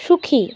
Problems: constant background noise, continuous background conversations